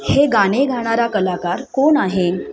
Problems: continuous background conversations